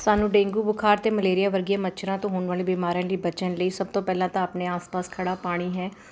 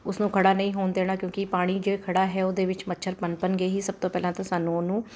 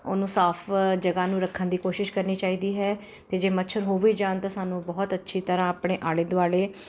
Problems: constant background noise